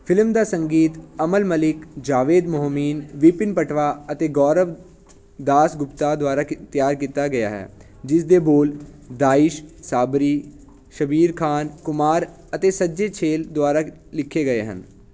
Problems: constant background noise